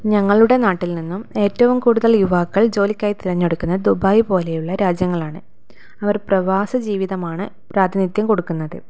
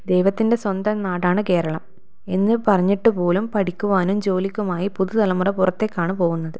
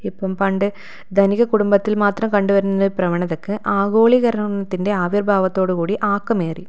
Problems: none marked